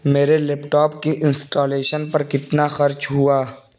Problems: constant background noise